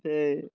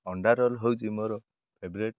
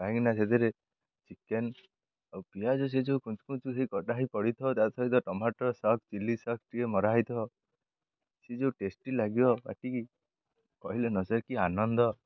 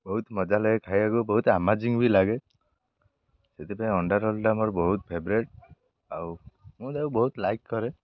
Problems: none marked